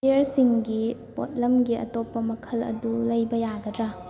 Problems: background conversations at intervals